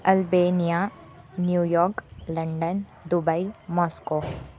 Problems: constant background noise